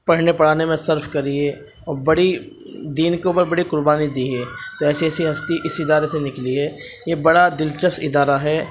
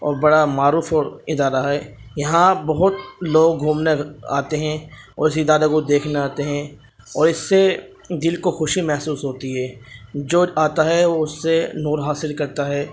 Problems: constant background noise